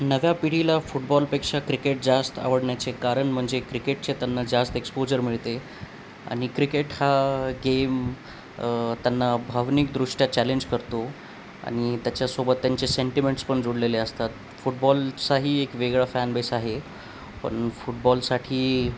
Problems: none marked